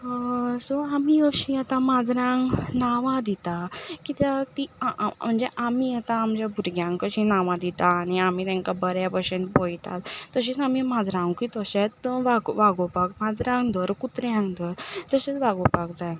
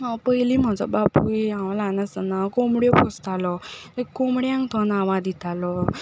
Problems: background sounds at intervals